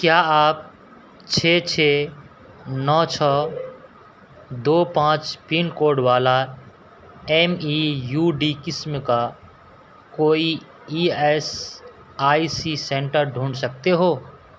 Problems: constant background noise